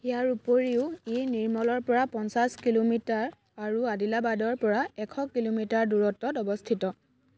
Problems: background sounds at intervals